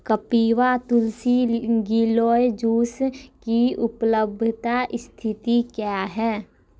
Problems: background sounds at intervals